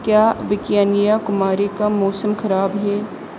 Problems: constant background noise